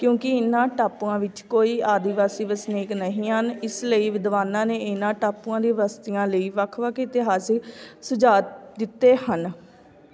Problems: continuous background conversations